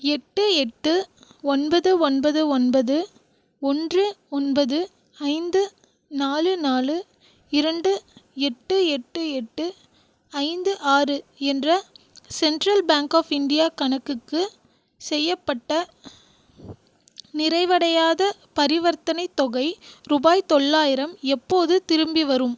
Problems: none marked